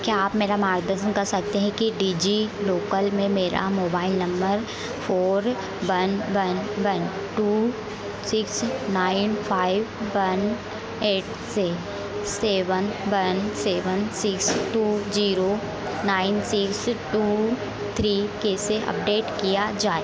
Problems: none marked